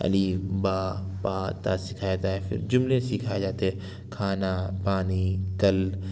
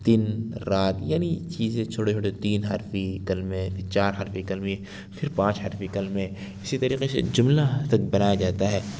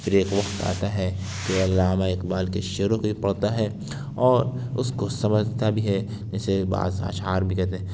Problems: none marked